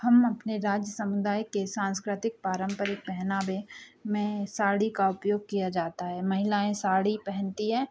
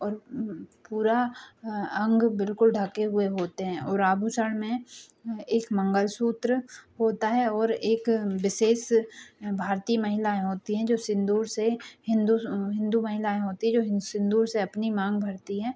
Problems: background sounds at intervals